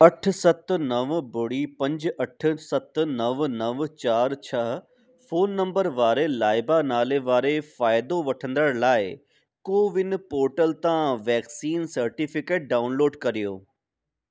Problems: none marked